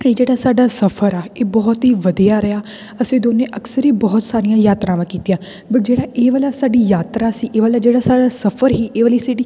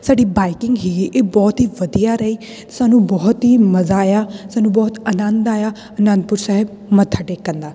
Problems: none marked